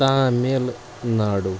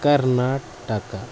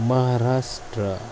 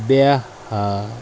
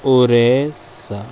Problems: constant background noise